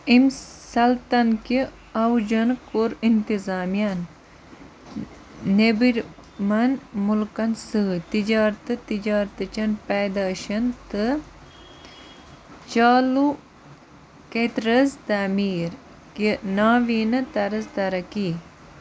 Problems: constant background noise